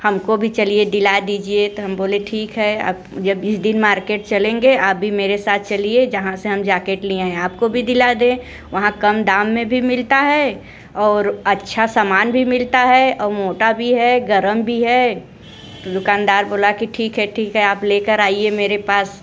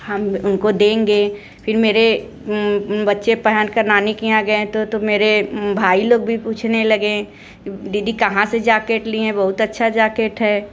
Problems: none marked